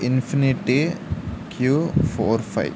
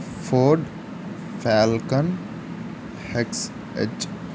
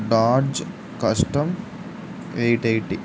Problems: constant background noise